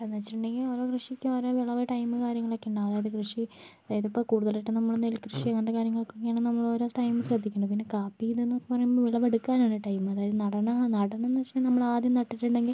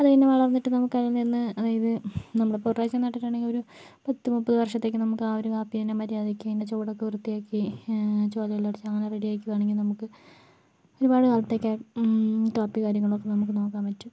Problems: background sounds at intervals, low volume